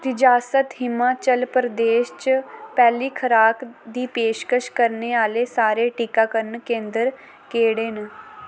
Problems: constant background noise